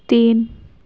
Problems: none marked